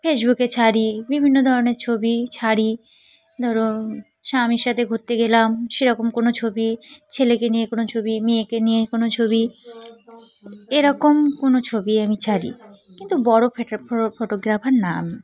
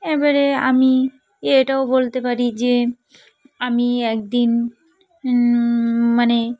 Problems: constant background noise, continuous background conversations